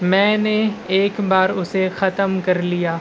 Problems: constant background noise, low volume